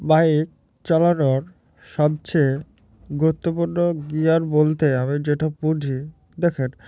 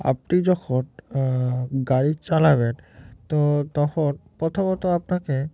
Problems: none marked